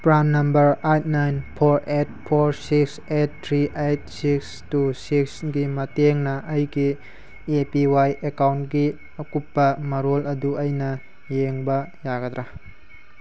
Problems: constant background noise